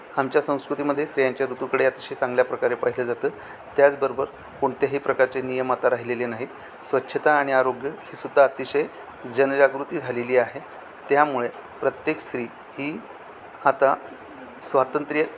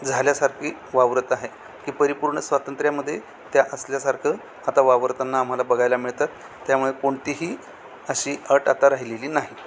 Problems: constant background noise, background conversations at intervals